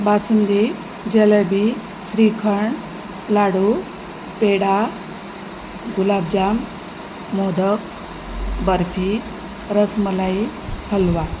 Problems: constant background noise